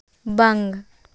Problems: none marked